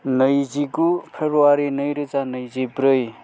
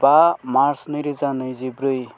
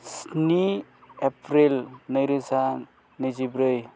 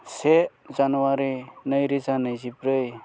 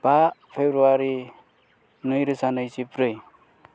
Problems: none marked